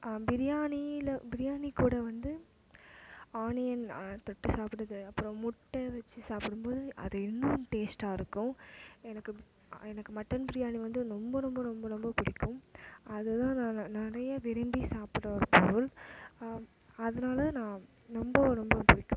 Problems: background sounds at intervals